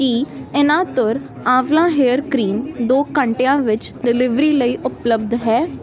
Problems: constant background noise